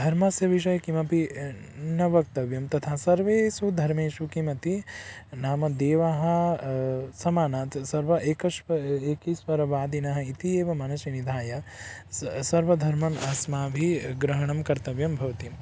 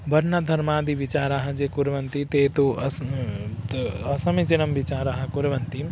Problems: background sounds at intervals, background conversations at intervals